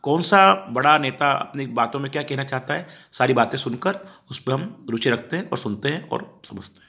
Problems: background sounds at intervals